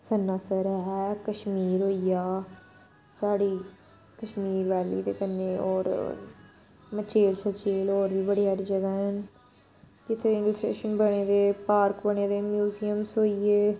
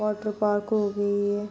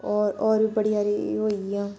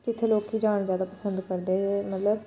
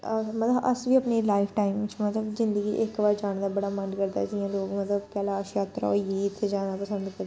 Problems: constant background noise